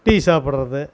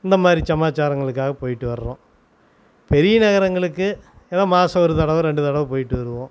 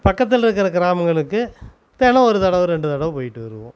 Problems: constant background noise